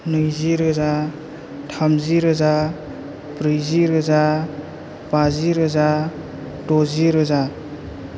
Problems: none marked